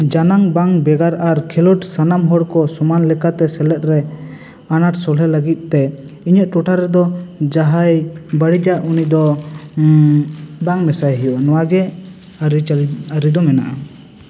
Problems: constant background noise, background conversations at intervals, echo